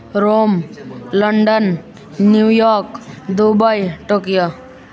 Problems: continuous background conversations